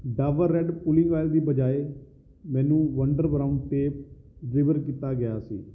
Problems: none marked